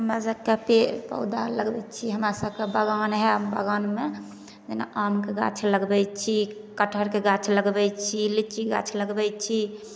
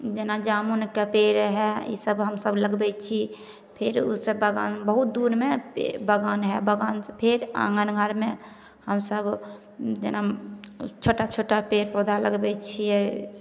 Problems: none marked